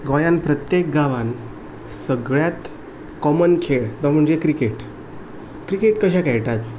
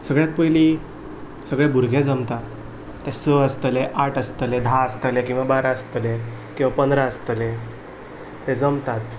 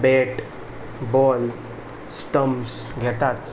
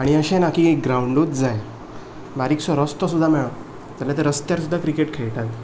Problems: none marked